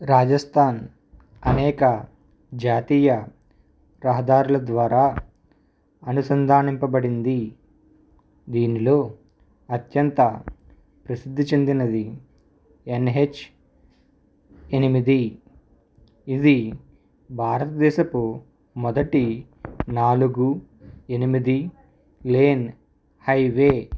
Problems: background sounds at intervals